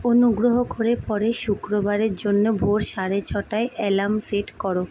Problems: none marked